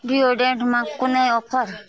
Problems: background sounds at intervals, continuous background conversations